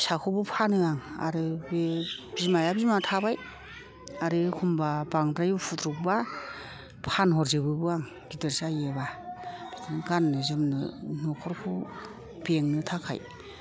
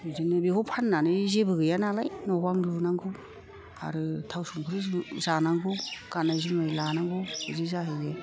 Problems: constant background noise, low volume